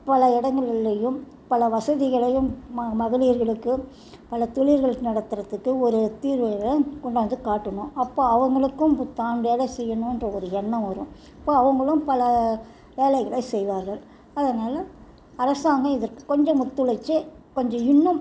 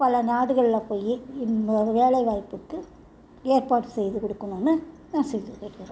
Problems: none marked